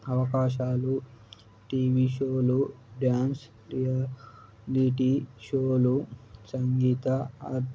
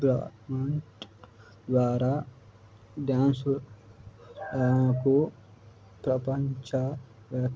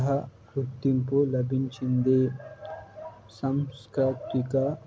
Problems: low volume